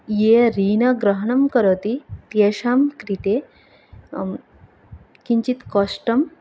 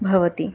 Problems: background sounds at intervals